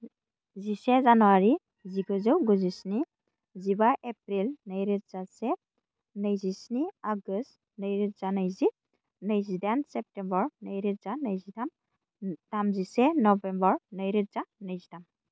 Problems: none marked